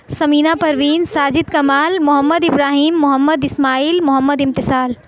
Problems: none marked